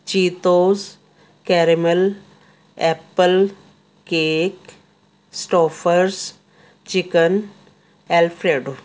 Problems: constant background noise